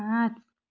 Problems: none marked